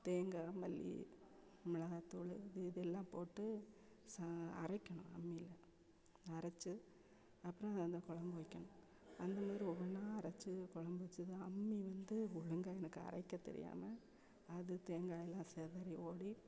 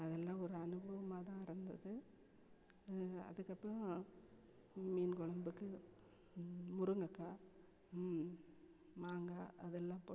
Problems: background sounds at intervals